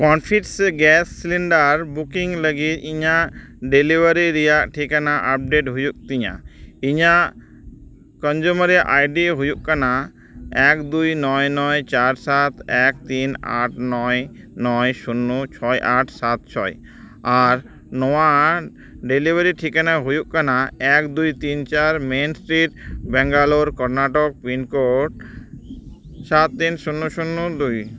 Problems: background sounds at intervals